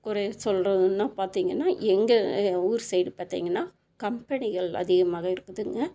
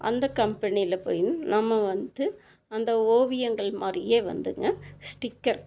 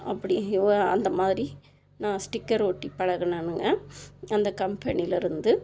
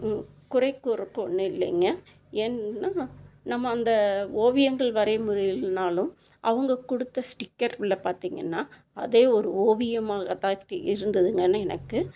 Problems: constant background noise